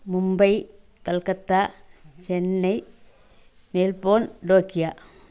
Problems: none marked